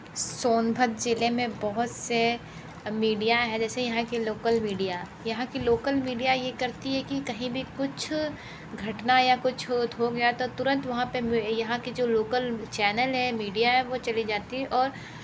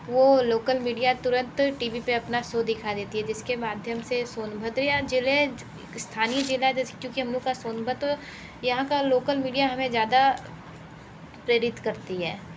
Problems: background sounds at intervals